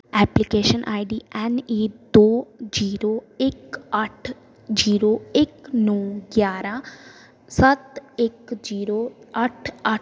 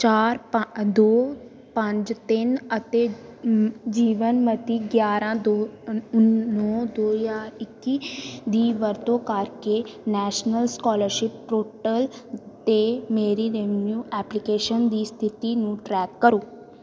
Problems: background sounds at intervals